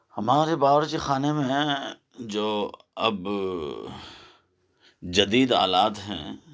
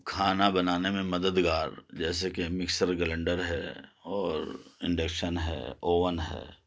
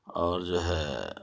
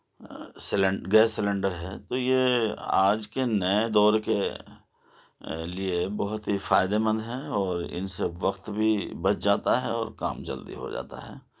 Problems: none marked